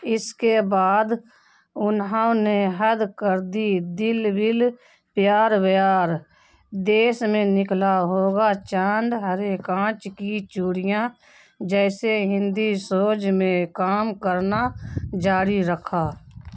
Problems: none marked